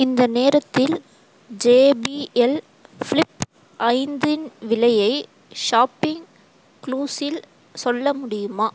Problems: constant background noise